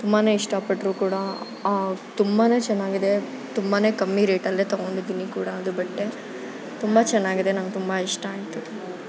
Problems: constant background noise